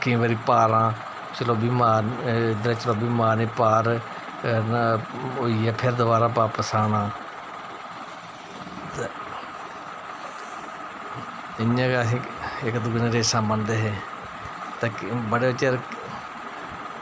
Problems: constant background noise